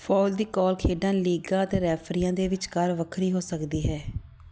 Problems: none marked